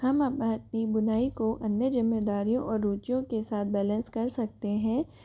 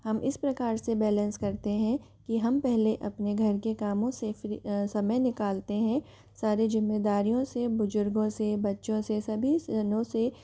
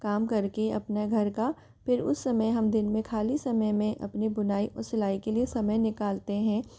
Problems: constant background noise